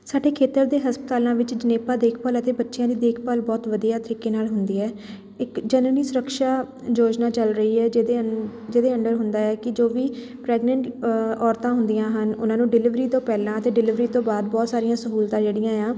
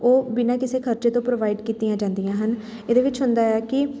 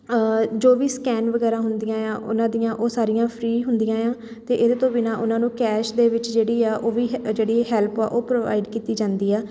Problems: constant background noise